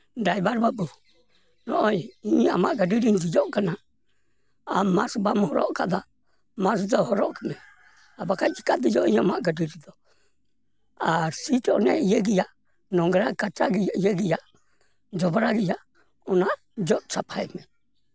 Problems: background sounds at intervals